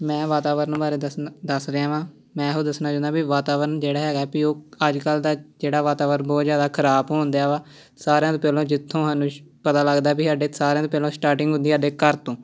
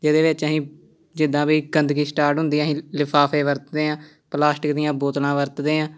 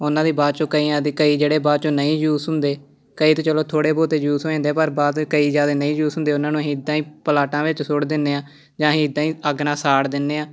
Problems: none marked